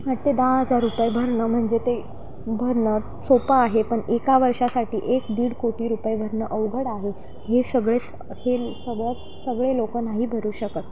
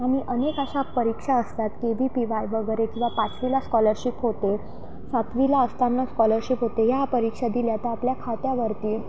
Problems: constant background noise